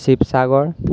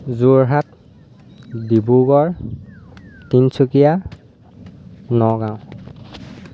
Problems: constant background noise